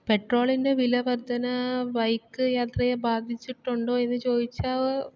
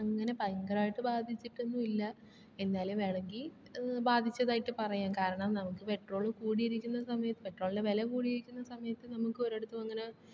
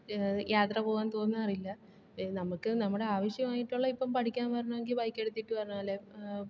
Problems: low volume